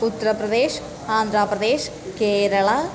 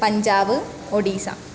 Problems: none marked